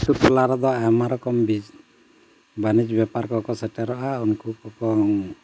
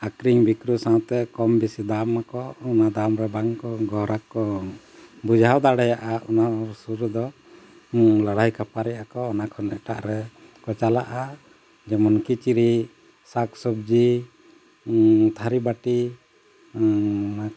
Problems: constant background noise